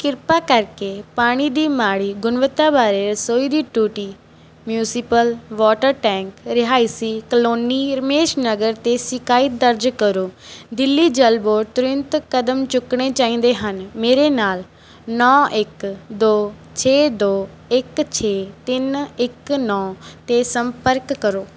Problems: background sounds at intervals